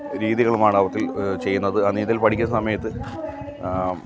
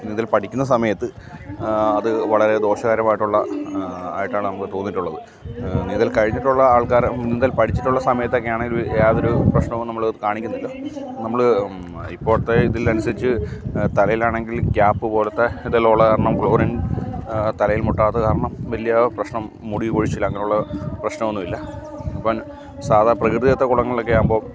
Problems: none marked